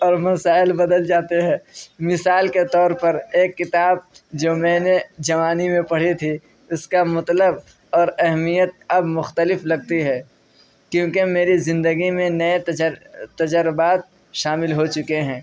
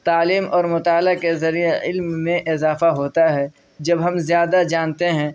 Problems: none marked